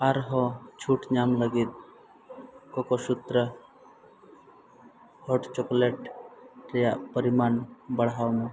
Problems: background sounds at intervals